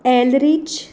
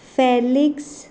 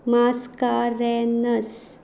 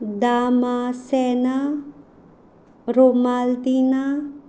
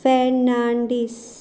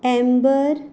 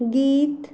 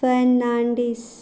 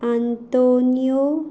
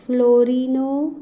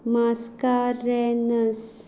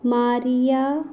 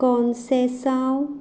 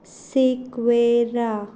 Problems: background sounds at intervals